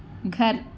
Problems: none marked